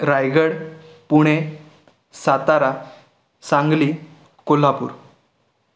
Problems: background sounds at intervals